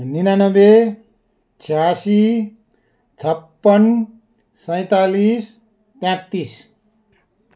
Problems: background sounds at intervals